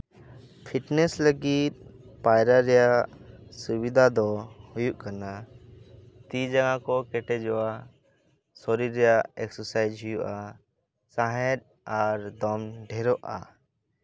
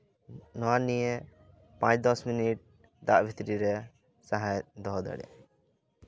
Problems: background sounds at intervals, continuous background conversations